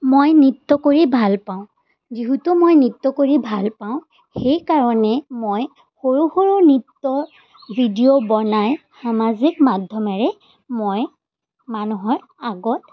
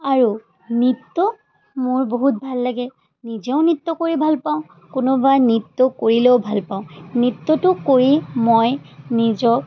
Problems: constant background noise